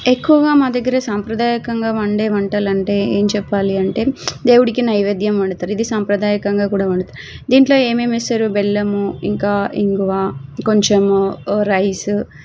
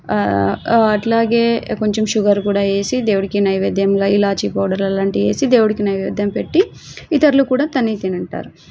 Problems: background sounds at intervals